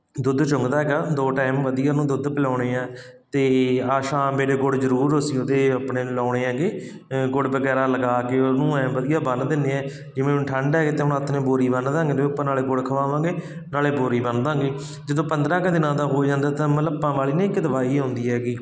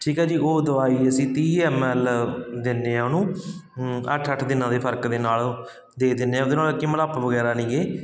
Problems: constant background noise